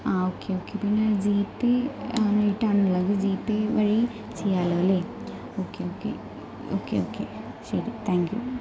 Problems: low volume